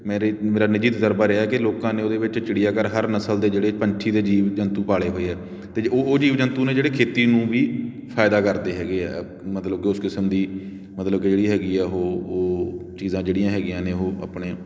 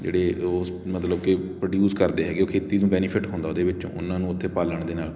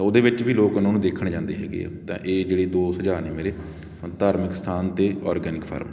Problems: constant background noise